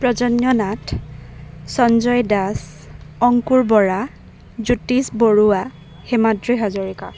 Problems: none marked